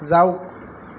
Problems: constant background noise